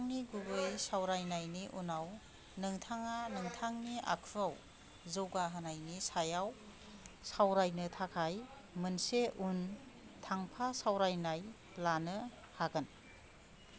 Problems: none marked